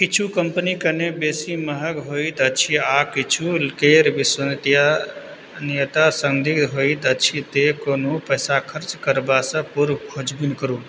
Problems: background sounds at intervals